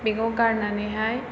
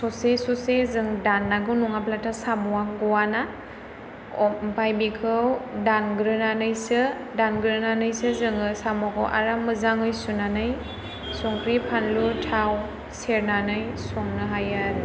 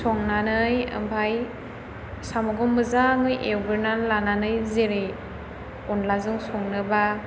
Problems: background sounds at intervals